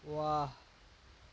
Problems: constant background noise, low volume